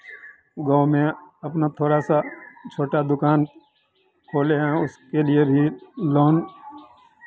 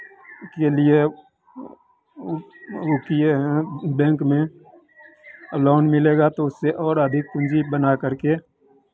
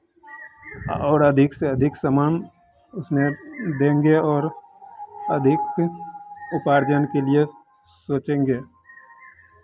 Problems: constant background noise